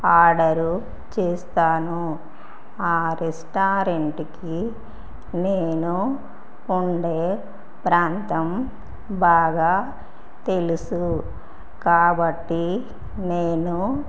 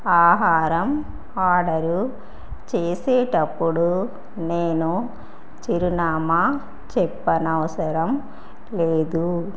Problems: none marked